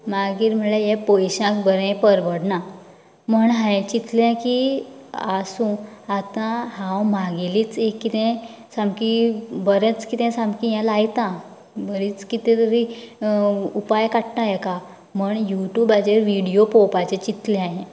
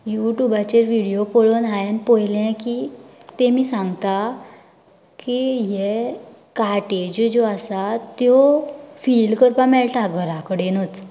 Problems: none marked